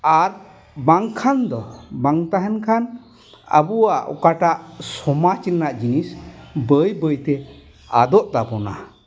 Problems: background sounds at intervals